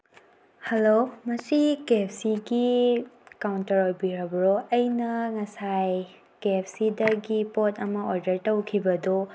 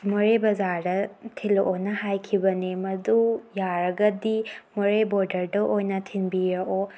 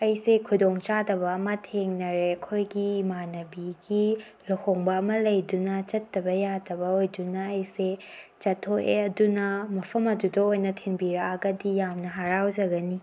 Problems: background sounds at intervals